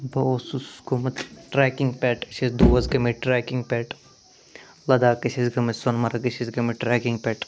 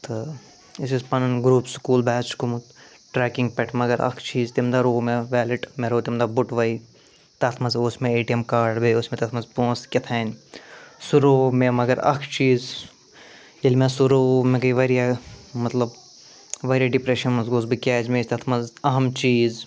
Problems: none marked